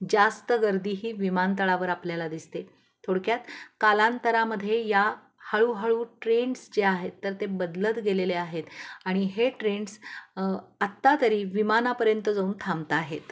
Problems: background sounds at intervals